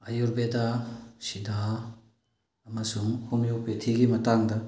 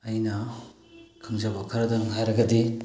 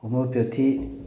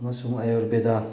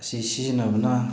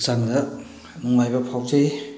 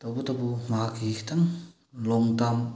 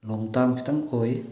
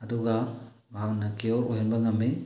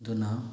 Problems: low volume